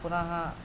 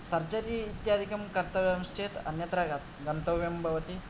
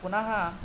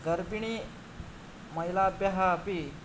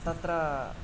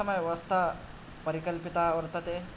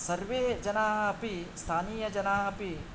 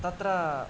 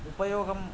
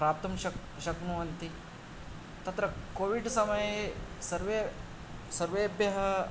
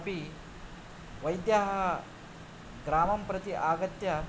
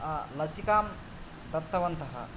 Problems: none marked